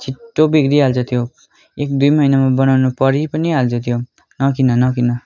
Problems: continuous background conversations